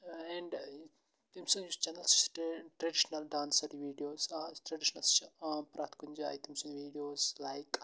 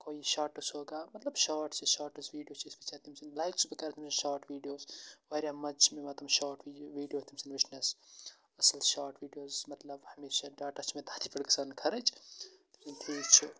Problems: constant background noise, low volume